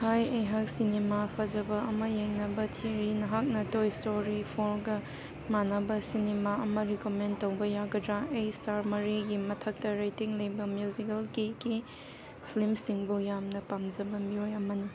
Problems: background sounds at intervals